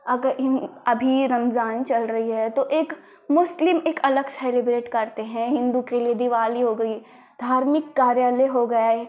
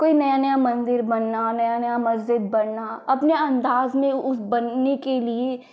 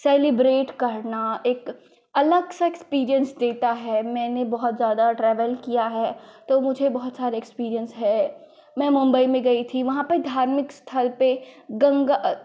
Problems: constant background noise